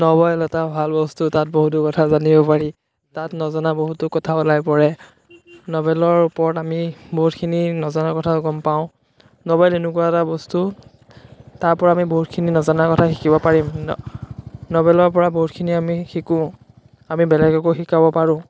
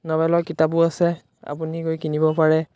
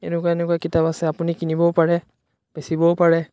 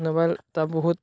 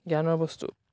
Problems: none marked